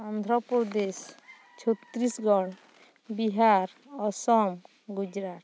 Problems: none marked